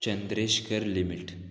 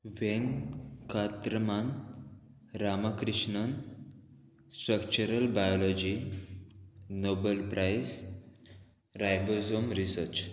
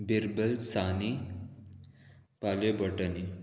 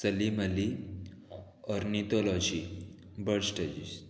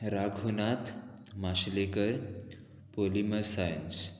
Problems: constant background noise